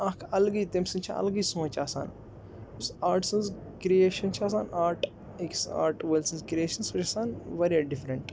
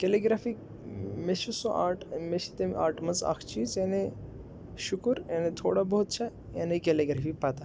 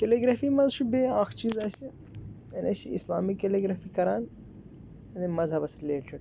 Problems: background sounds at intervals